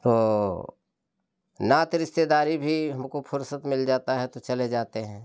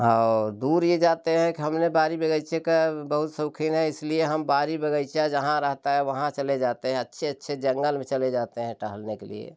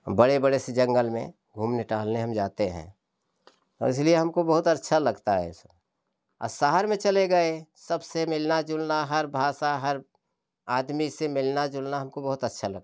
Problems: none marked